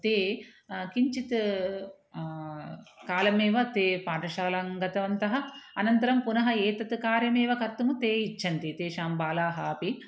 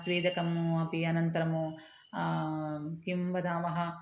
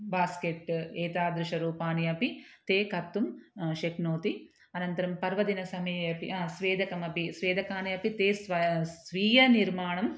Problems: none marked